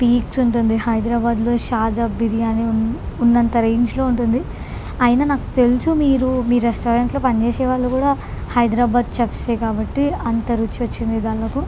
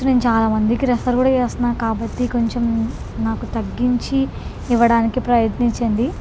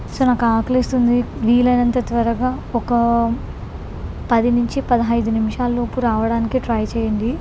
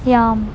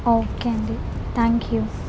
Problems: constant background noise